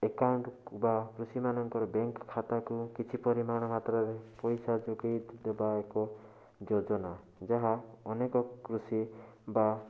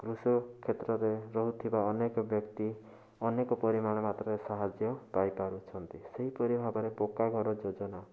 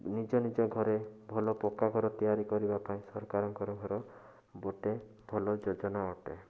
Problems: constant background noise